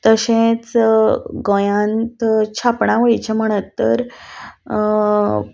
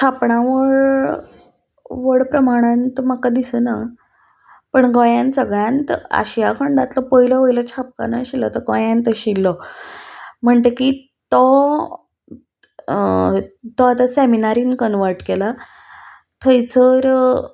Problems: none marked